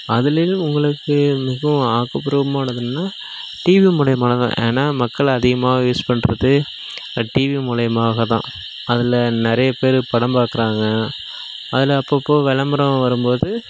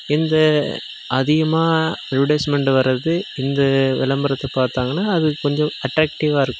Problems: background sounds at intervals